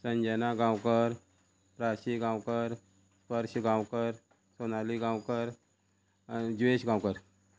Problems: constant background noise